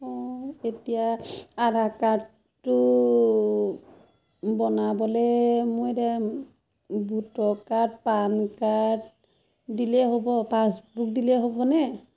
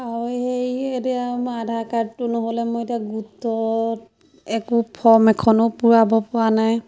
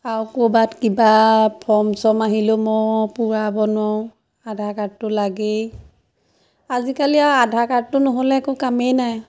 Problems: constant background noise, background conversations at intervals